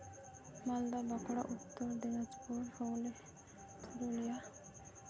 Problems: constant background noise, low volume